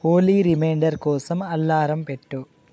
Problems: none marked